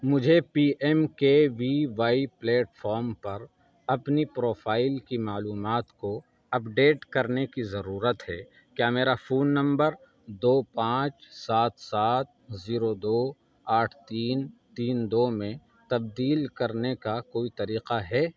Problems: background sounds at intervals, background conversations at intervals